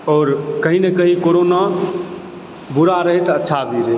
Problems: constant background noise